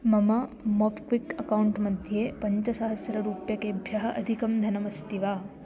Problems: constant background noise